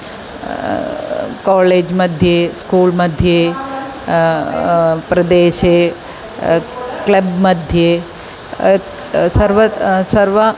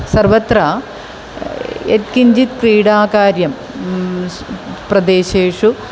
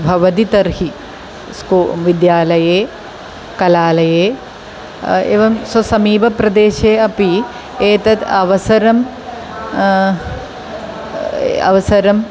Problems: constant background noise